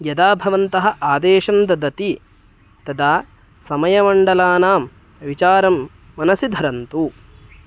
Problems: none marked